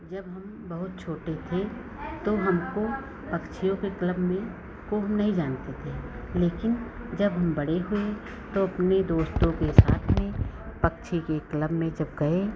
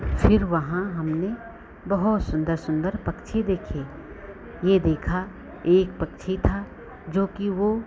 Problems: background sounds at intervals